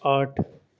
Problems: none marked